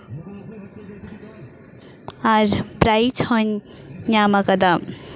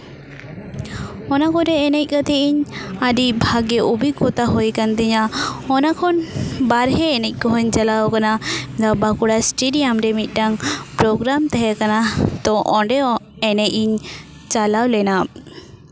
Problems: constant background noise